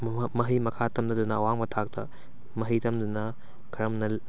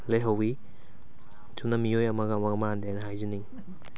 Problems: background sounds at intervals